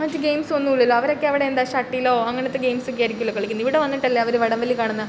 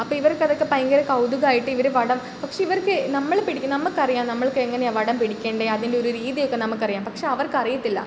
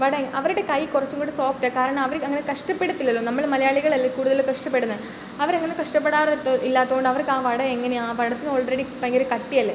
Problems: none marked